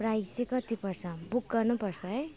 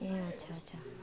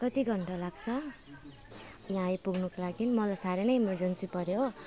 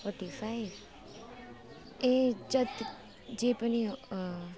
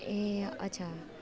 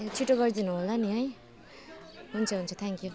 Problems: constant background noise, continuous background conversations